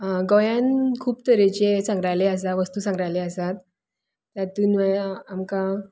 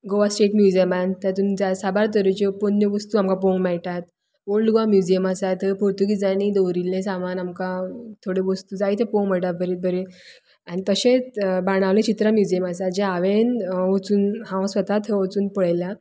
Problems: background sounds at intervals